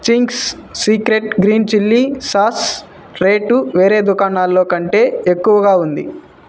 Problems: constant background noise